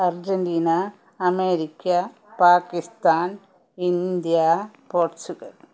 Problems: none marked